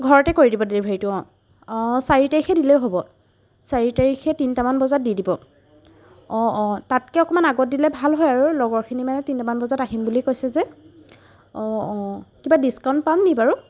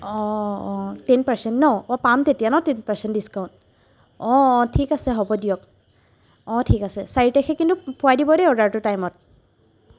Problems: background sounds at intervals